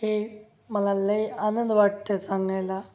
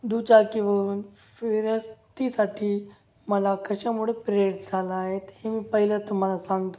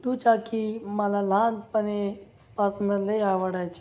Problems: none marked